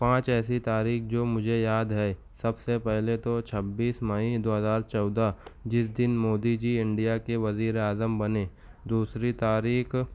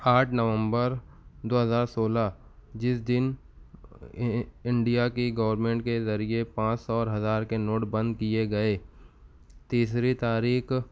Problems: none marked